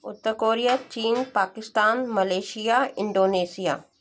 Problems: background sounds at intervals